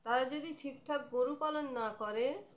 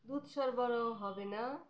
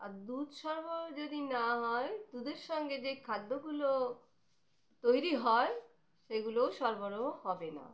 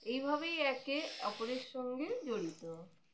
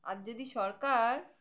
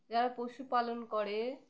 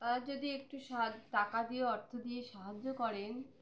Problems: none marked